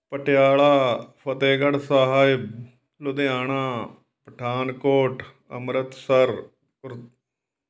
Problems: background sounds at intervals